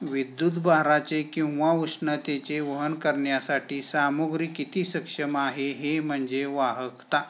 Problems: none marked